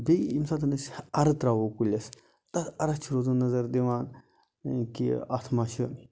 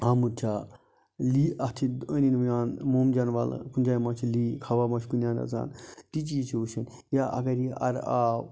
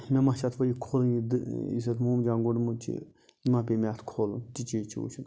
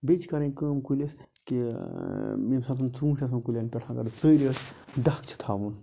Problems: constant background noise